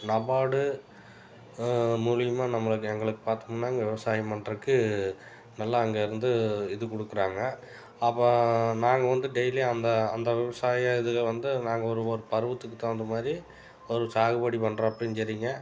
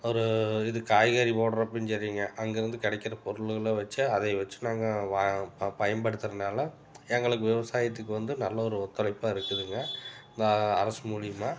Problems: background sounds at intervals